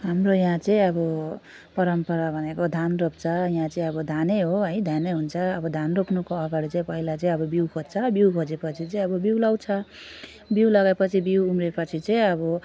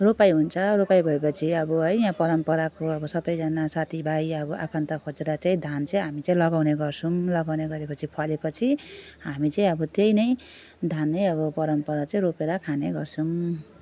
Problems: none marked